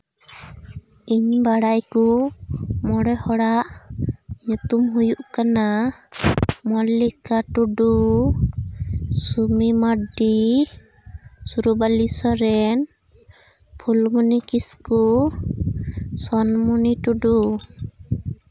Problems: none marked